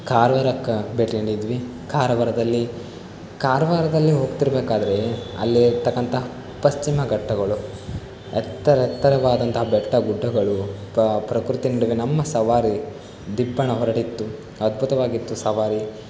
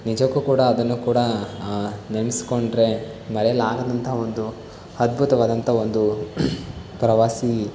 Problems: background sounds at intervals